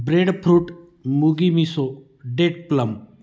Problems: none marked